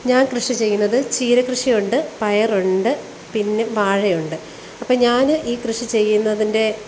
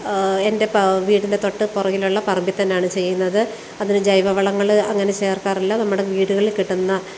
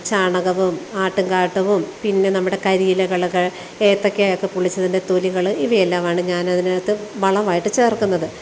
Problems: none marked